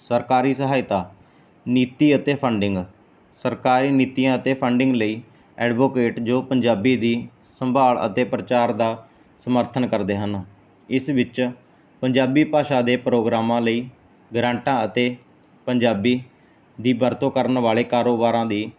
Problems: background sounds at intervals